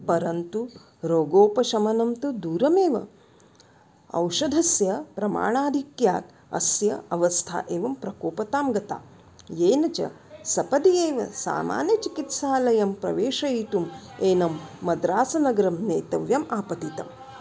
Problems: background sounds at intervals